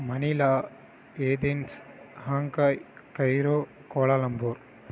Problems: background sounds at intervals